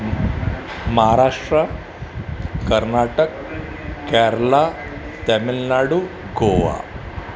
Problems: none marked